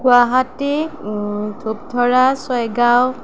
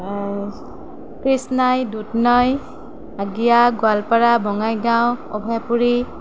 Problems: background sounds at intervals